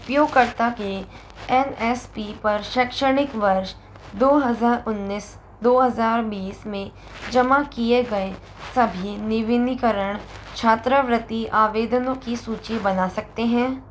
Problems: background sounds at intervals